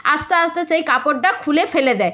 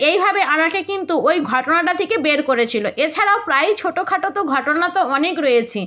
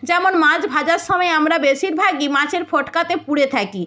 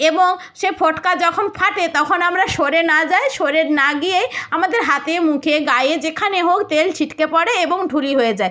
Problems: none marked